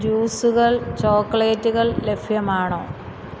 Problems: constant background noise